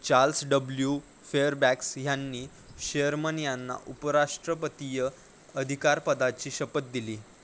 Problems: constant background noise